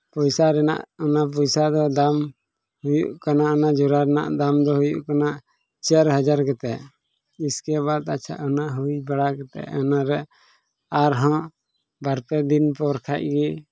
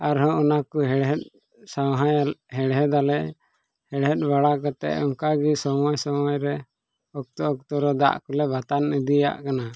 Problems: background sounds at intervals